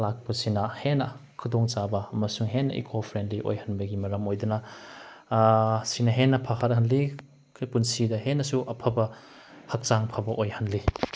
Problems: none marked